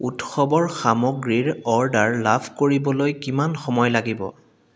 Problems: echo